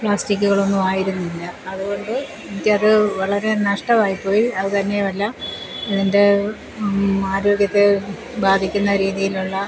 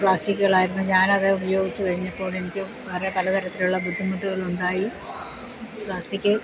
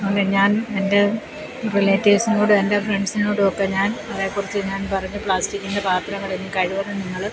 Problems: constant background noise